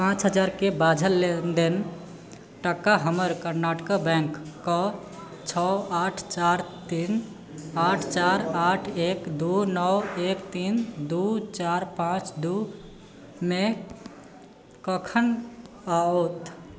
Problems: background conversations at intervals